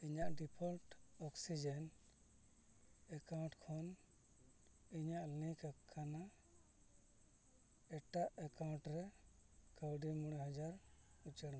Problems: background sounds at intervals, low volume